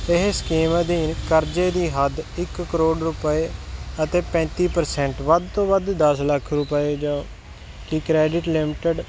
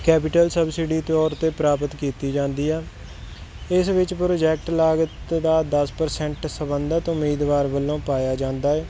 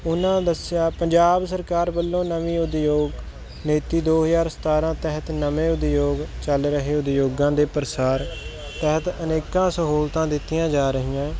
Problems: constant background noise